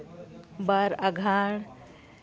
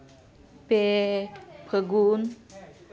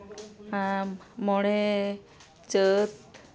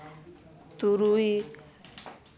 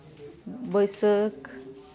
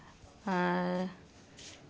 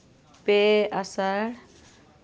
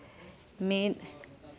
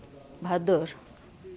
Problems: constant background noise, continuous background conversations